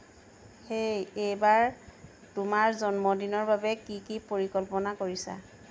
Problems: constant background noise